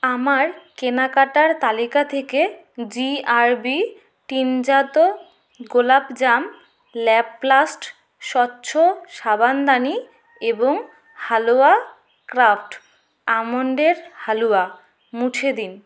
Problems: constant background noise